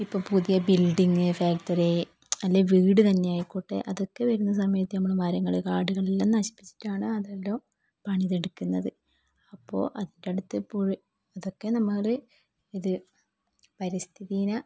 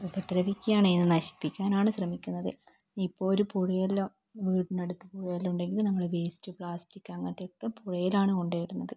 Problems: low volume